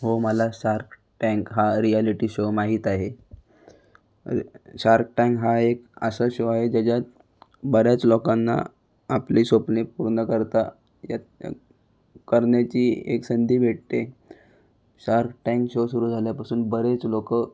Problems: background sounds at intervals